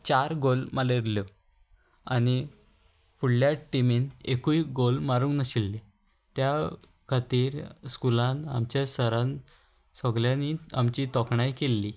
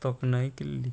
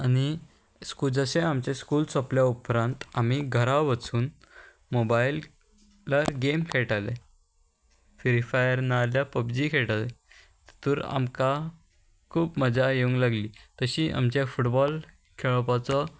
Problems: constant background noise